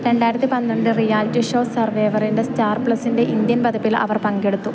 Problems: none marked